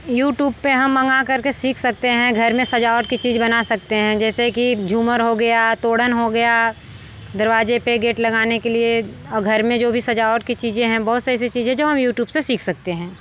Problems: background sounds at intervals